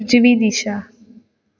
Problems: none marked